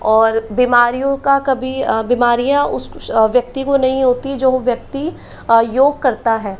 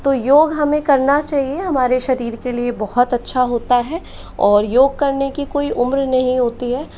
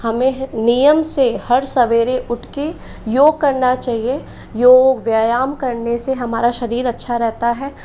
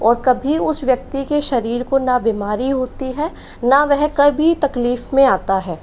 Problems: constant background noise